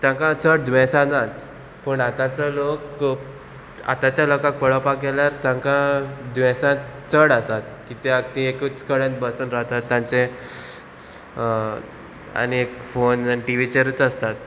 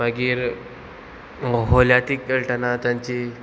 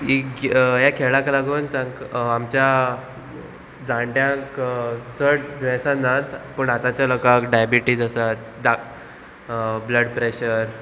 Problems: none marked